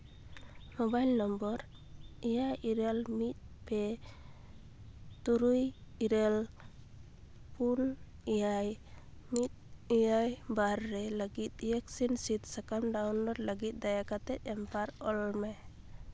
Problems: none marked